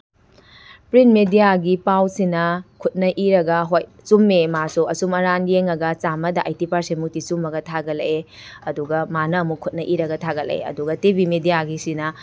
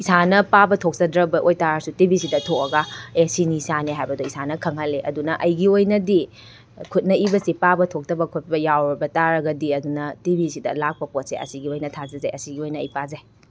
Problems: none marked